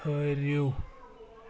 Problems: constant background noise